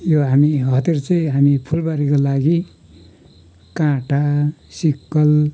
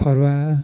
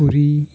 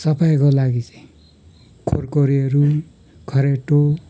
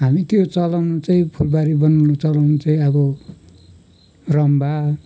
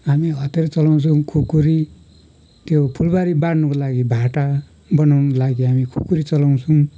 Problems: background sounds at intervals